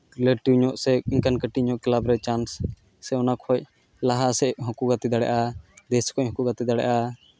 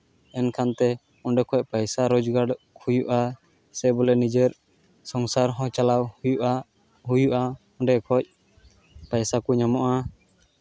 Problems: background sounds at intervals